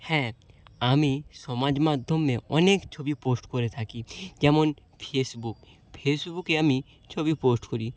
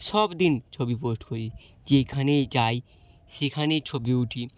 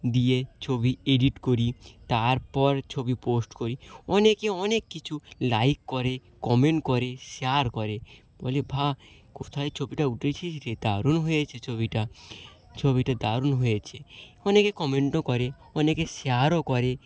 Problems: none marked